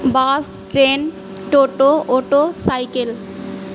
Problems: none marked